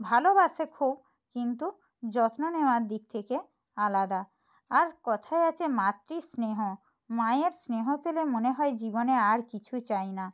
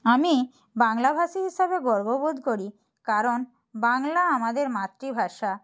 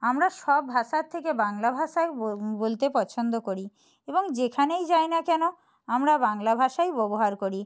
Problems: none marked